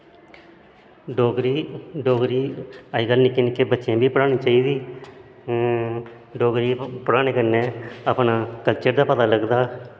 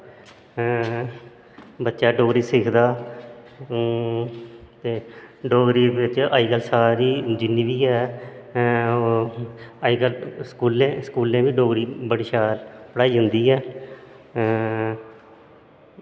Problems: constant background noise, echo